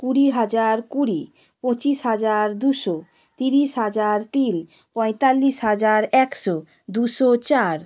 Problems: none marked